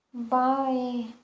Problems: low volume